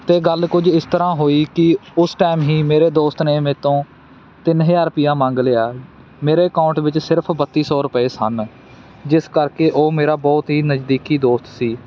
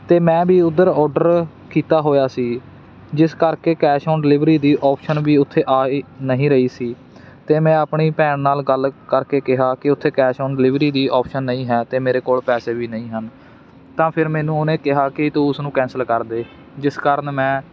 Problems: none marked